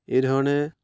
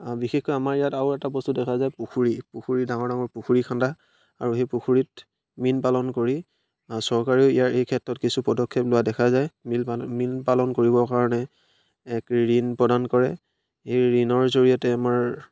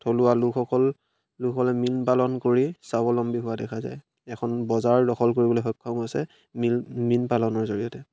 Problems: none marked